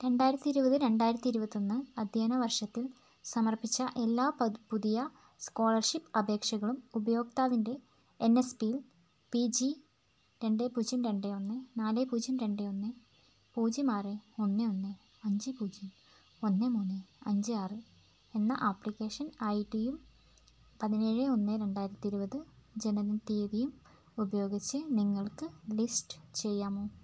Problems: background sounds at intervals, low volume